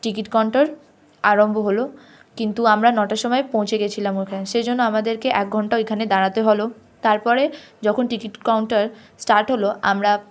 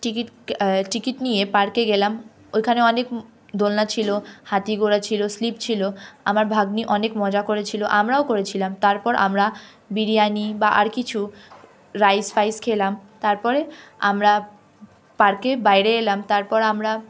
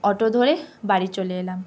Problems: constant background noise